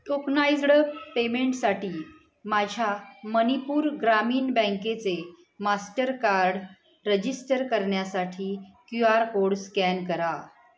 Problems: none marked